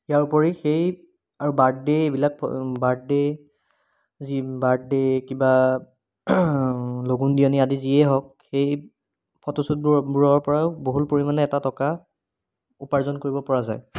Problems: background sounds at intervals